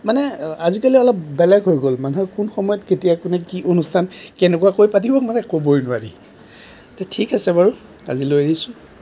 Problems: none marked